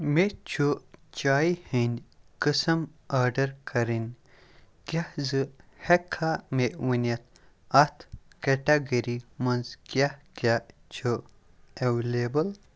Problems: background sounds at intervals